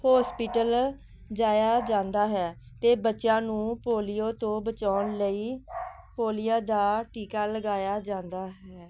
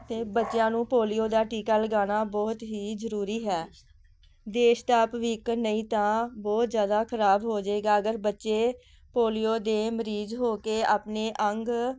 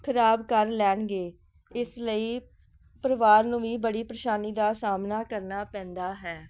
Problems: background sounds at intervals